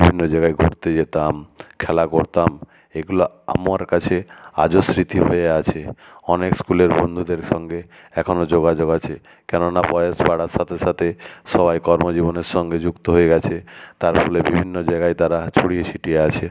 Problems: none marked